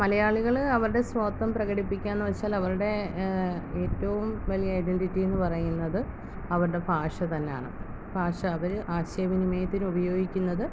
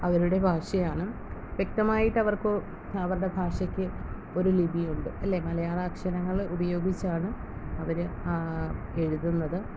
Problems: constant background noise